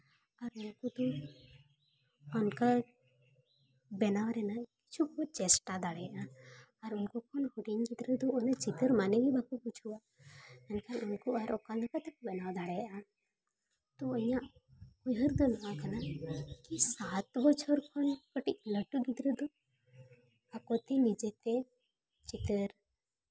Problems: background sounds at intervals